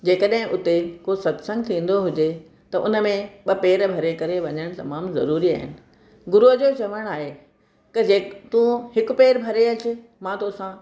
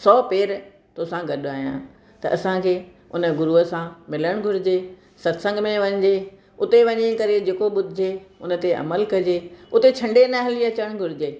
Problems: none marked